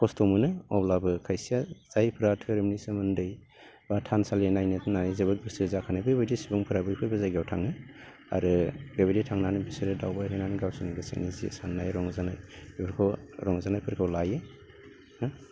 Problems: constant background noise